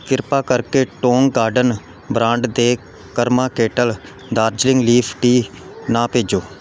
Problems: background sounds at intervals